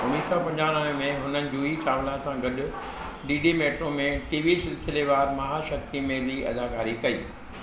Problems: constant background noise